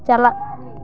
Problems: background conversations at intervals